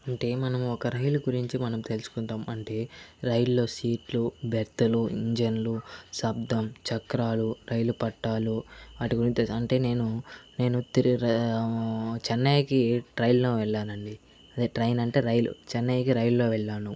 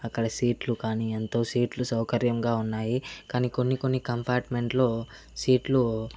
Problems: constant background noise, background conversations at intervals